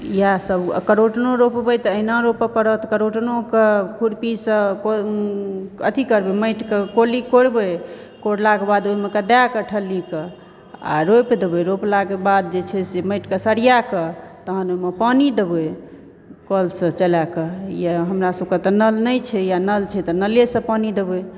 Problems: none marked